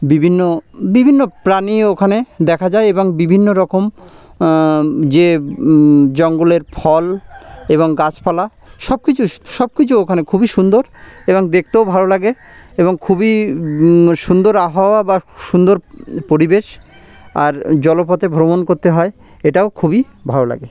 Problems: none marked